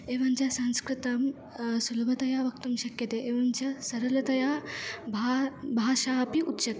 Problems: background sounds at intervals